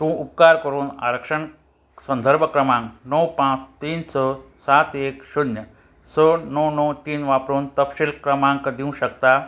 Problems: constant background noise